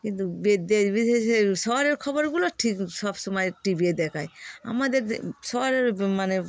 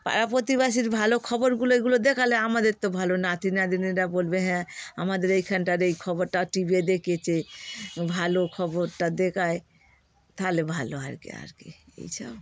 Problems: constant background noise